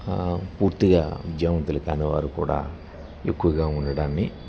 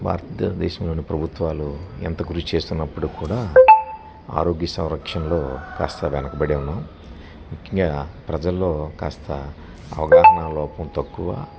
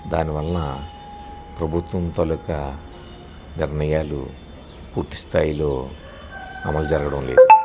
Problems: none marked